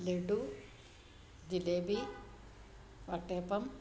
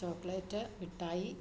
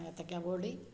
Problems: low volume